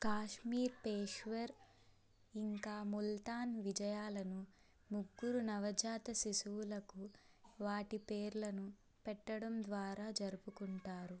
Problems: low volume